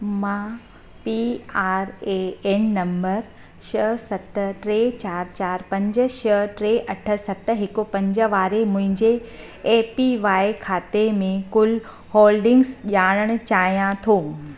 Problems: constant background noise, echo